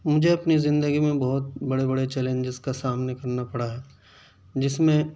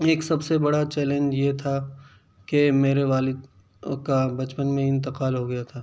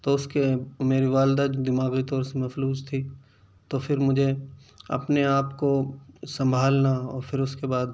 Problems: none marked